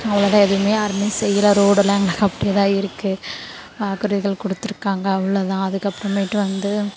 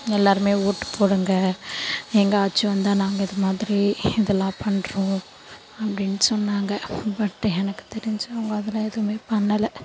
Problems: constant background noise